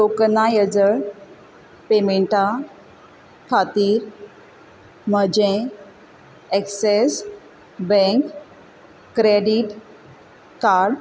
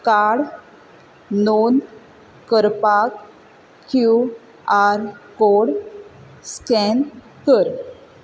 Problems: constant background noise